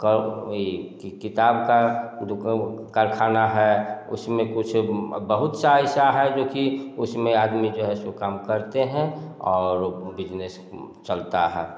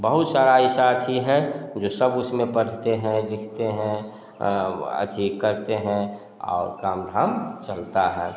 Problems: none marked